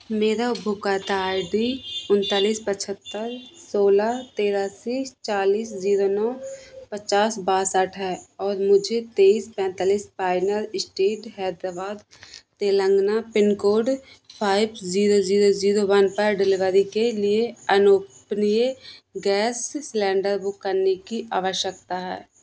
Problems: none marked